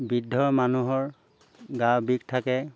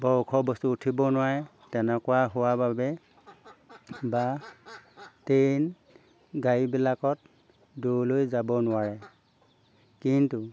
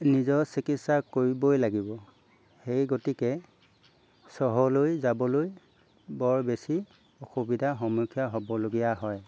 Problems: background sounds at intervals